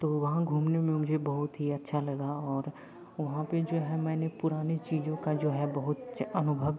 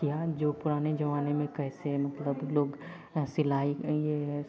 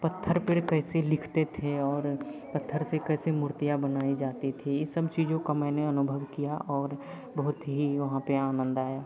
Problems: none marked